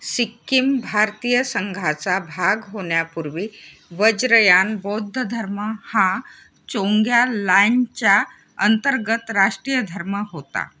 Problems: none marked